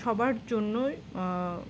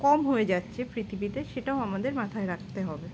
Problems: constant background noise